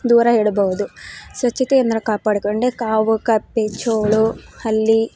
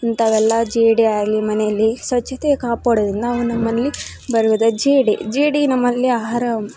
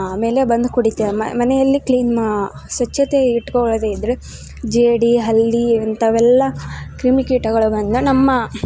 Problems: background sounds at intervals